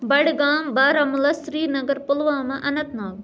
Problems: none marked